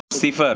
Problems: none marked